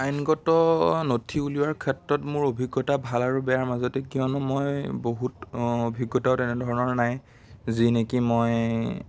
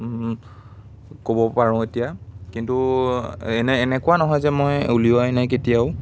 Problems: background sounds at intervals, background conversations at intervals